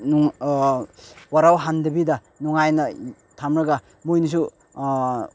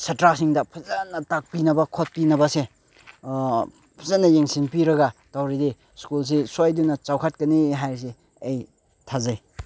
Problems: none marked